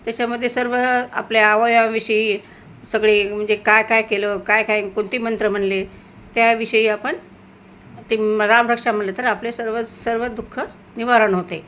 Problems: none marked